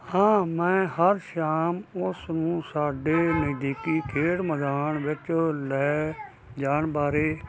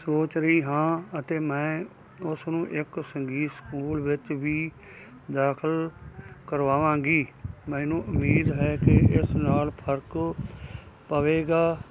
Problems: constant background noise, background conversations at intervals